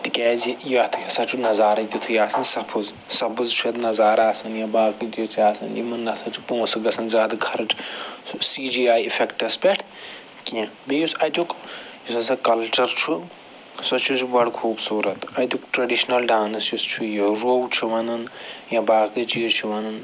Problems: background sounds at intervals